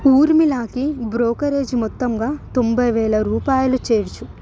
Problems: none marked